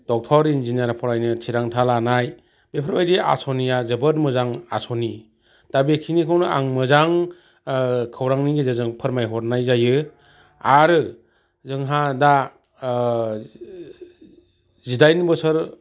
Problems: constant background noise